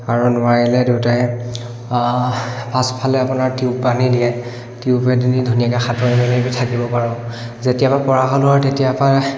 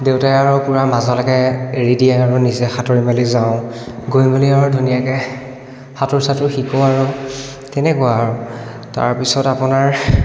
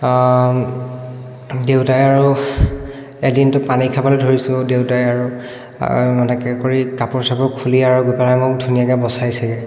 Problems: echo